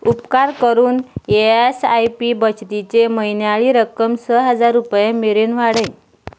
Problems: background sounds at intervals